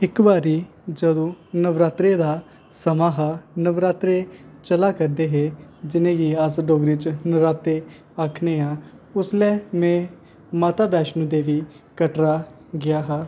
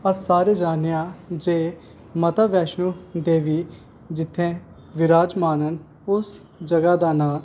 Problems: constant background noise